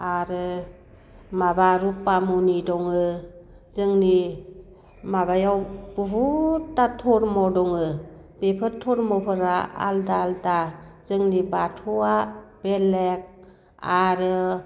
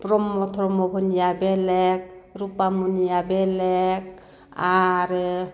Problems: none marked